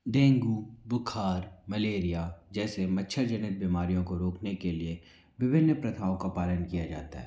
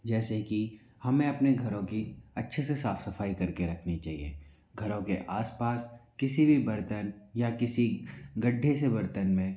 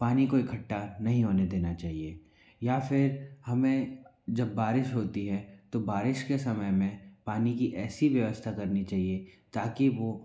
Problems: none marked